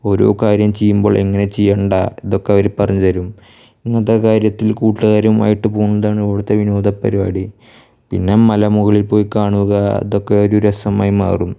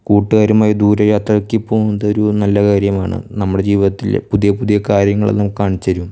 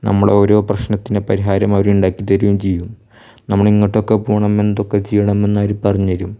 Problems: none marked